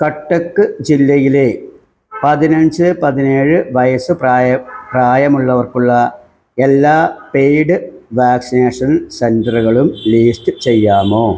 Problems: background sounds at intervals